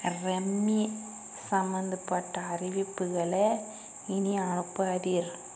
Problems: constant background noise